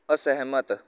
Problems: background sounds at intervals